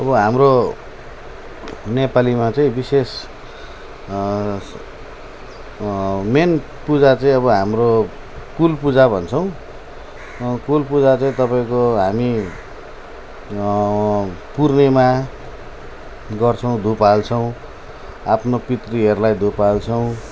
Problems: none marked